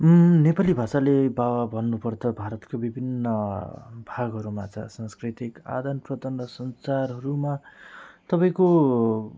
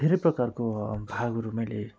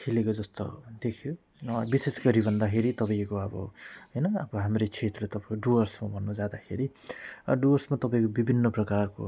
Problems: none marked